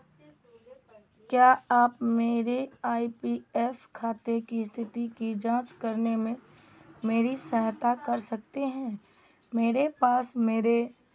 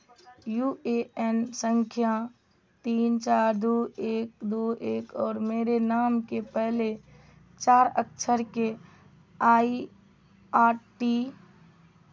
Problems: background sounds at intervals